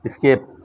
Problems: none marked